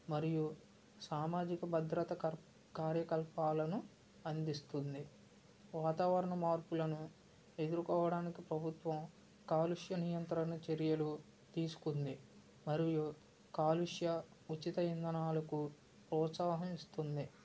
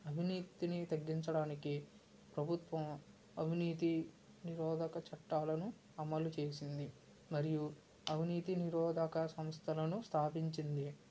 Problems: none marked